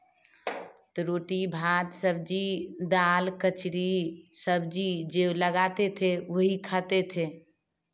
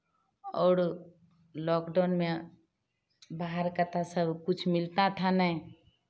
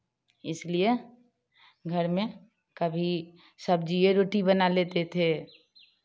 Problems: none marked